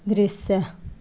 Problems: constant background noise